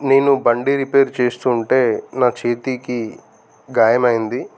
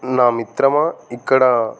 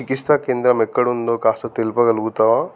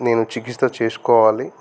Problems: constant background noise